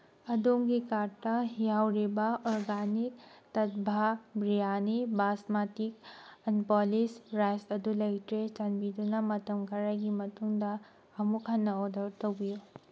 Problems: background sounds at intervals